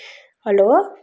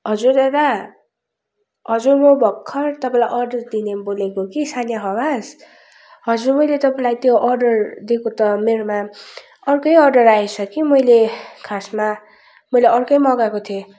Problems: background sounds at intervals